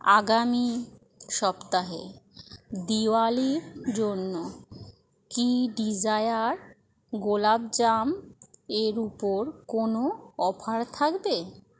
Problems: constant background noise